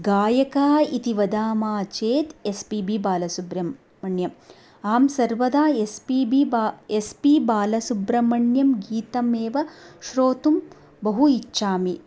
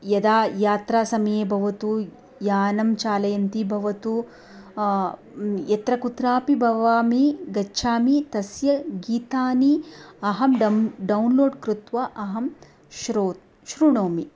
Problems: none marked